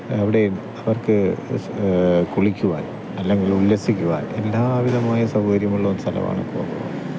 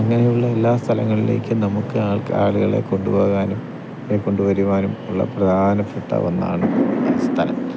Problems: constant background noise